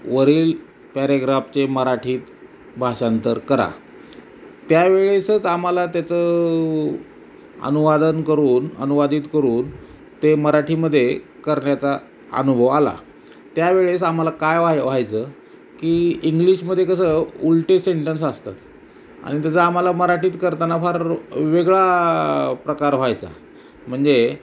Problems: none marked